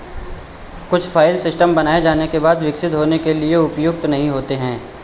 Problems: echo